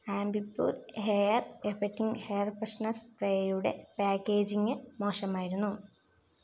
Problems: low volume